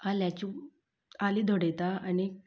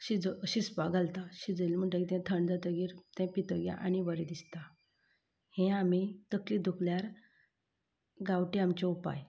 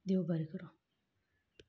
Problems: none marked